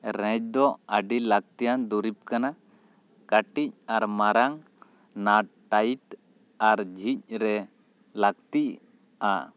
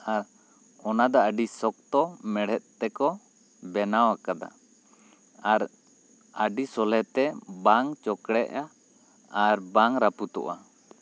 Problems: none marked